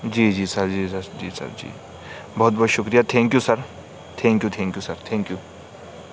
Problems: constant background noise